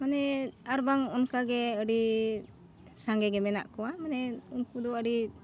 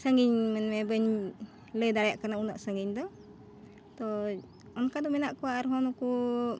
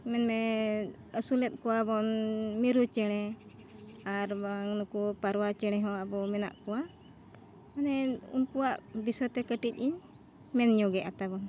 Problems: none marked